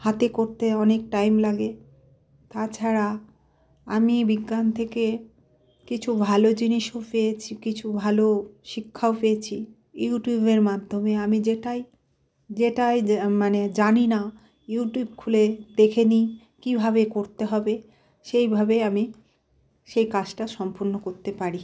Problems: background sounds at intervals